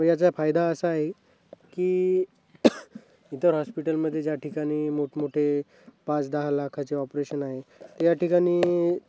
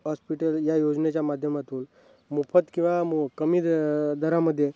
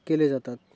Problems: constant background noise, background conversations at intervals